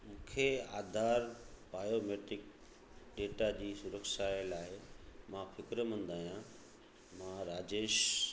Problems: constant background noise, echo